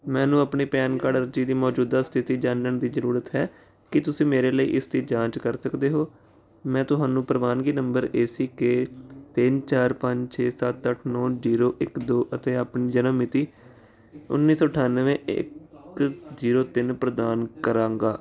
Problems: background conversations at intervals